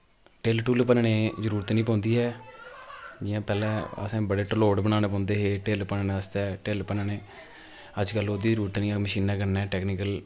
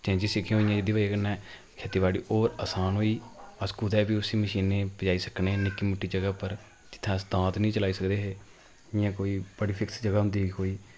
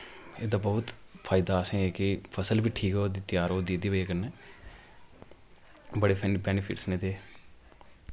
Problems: constant background noise